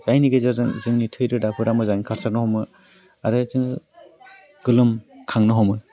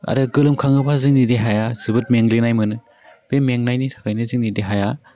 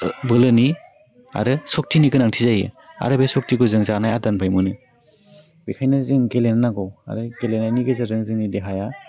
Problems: low volume